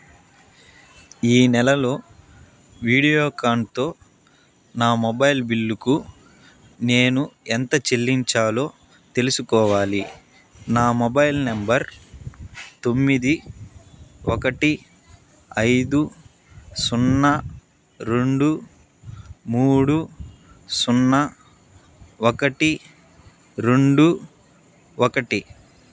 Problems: none marked